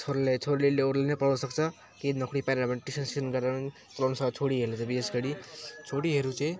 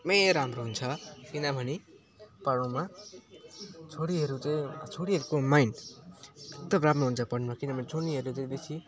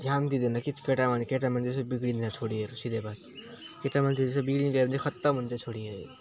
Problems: background sounds at intervals